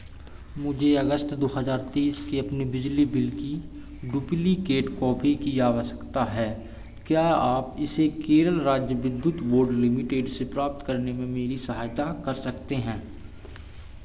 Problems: constant background noise